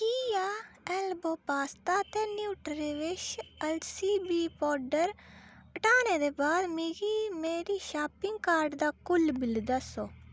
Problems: none marked